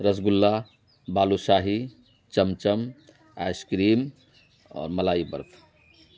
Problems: none marked